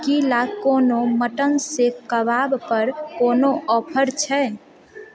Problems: continuous background conversations